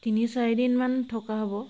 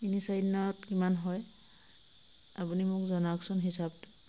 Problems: constant background noise